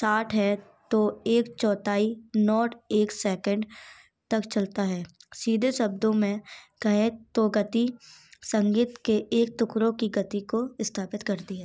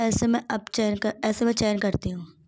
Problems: background sounds at intervals, background conversations at intervals